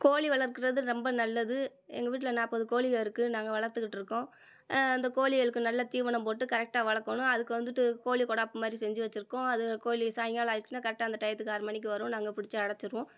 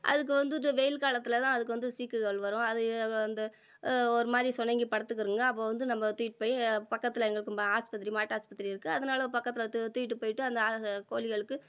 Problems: none marked